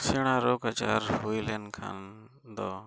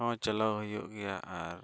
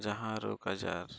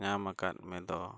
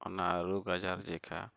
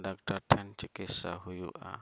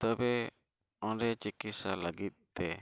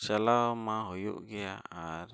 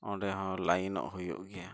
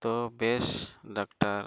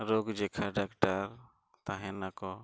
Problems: none marked